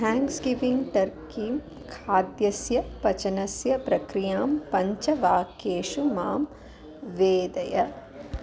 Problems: constant background noise, continuous background conversations